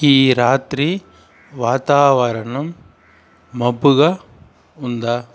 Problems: constant background noise